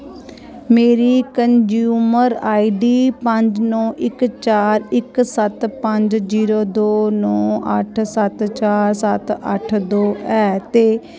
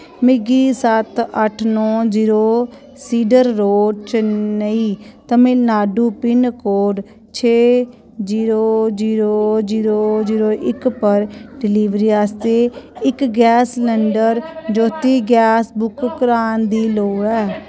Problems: none marked